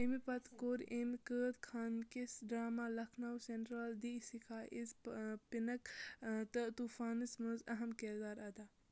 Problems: none marked